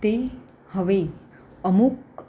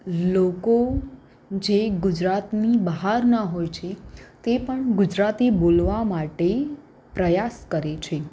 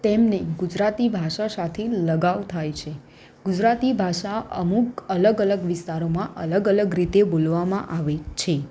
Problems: none marked